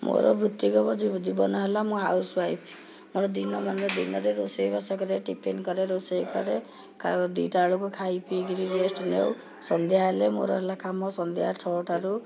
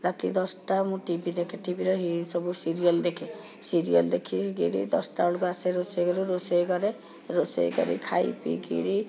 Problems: continuous background conversations